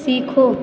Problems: none marked